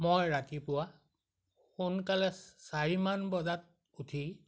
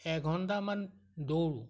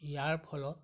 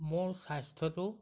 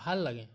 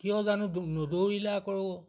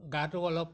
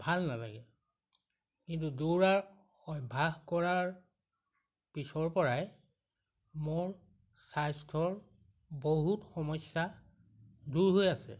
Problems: none marked